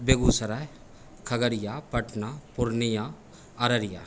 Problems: constant background noise